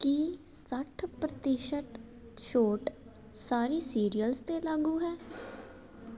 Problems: none marked